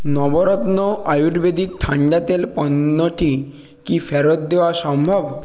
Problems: constant background noise